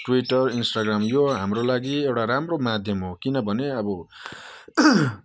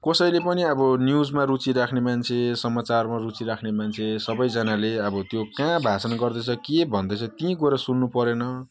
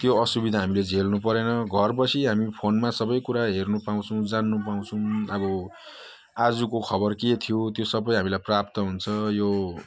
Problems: none marked